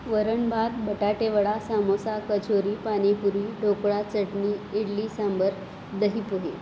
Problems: constant background noise